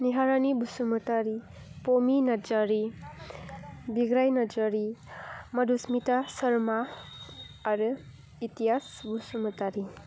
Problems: low volume